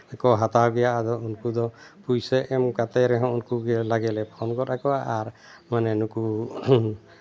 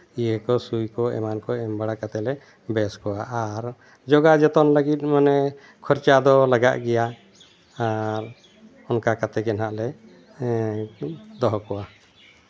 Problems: none marked